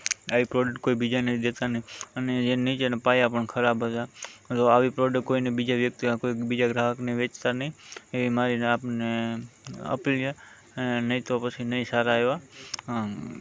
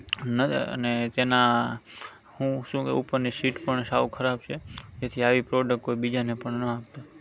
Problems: constant background noise